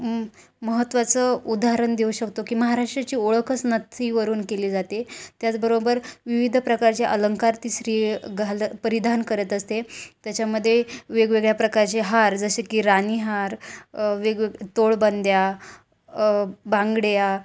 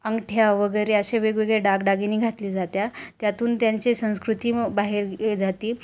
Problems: none marked